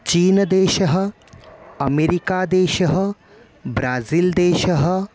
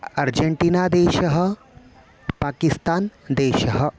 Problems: none marked